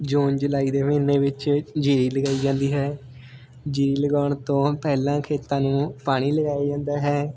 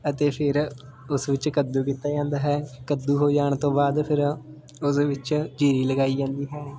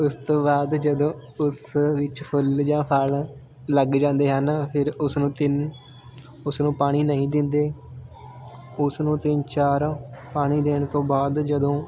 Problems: background sounds at intervals